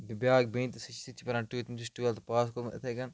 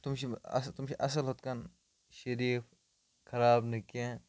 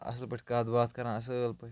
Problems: background sounds at intervals, low volume